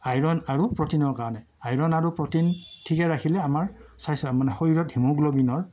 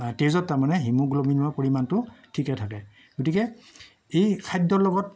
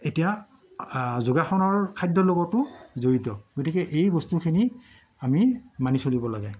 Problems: none marked